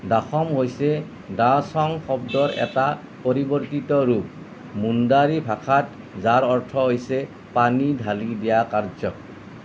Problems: constant background noise